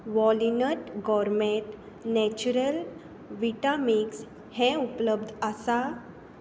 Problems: constant background noise